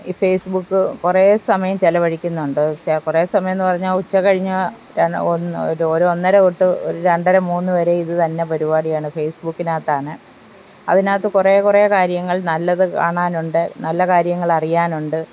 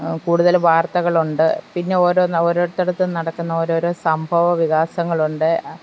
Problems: constant background noise